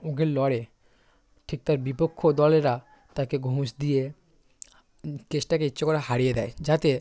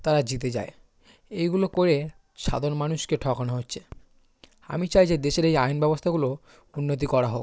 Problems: constant background noise, background conversations at intervals